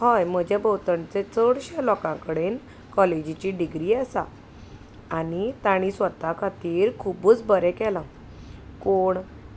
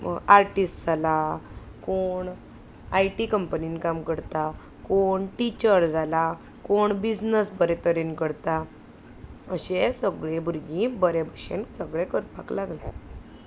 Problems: none marked